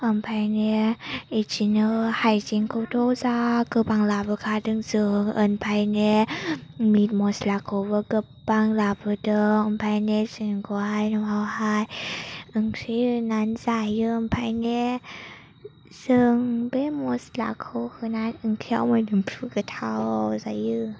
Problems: low volume